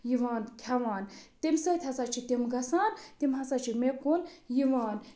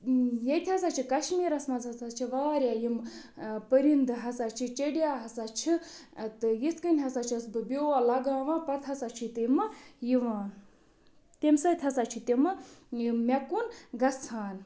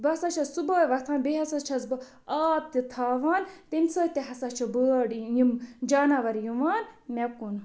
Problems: none marked